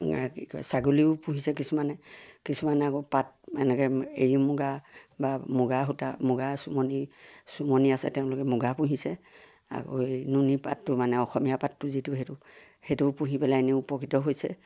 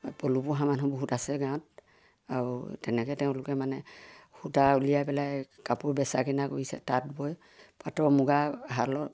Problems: none marked